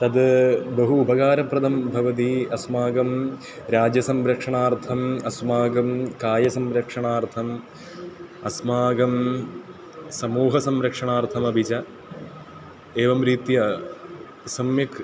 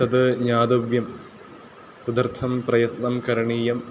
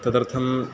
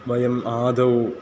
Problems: constant background noise, continuous background conversations